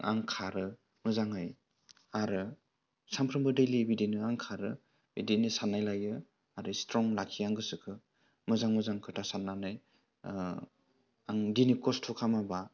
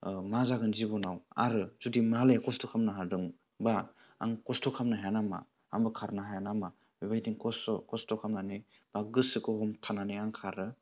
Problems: low volume